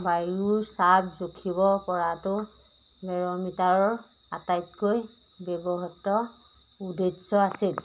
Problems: none marked